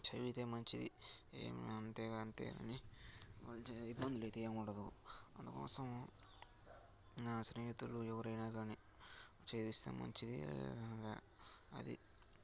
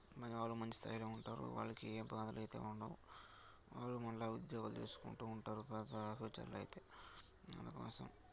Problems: none marked